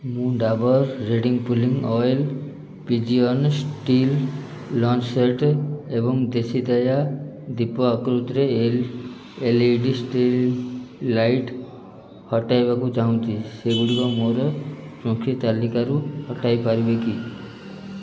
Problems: none marked